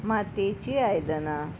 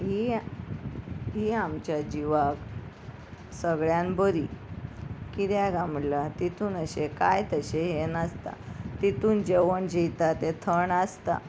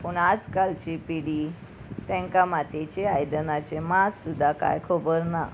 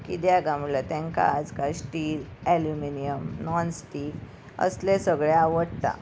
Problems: none marked